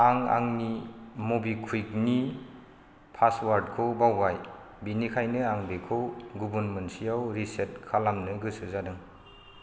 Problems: none marked